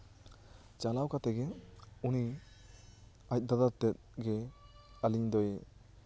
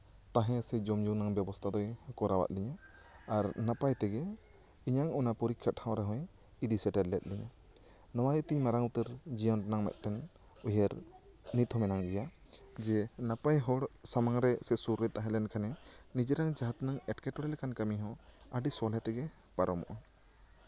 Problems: background conversations at intervals